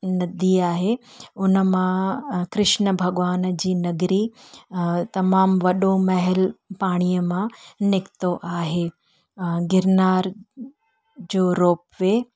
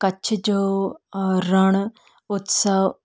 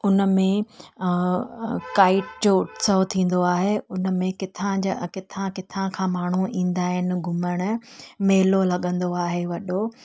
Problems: none marked